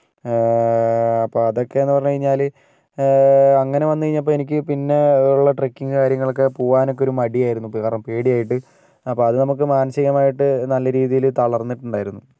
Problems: none marked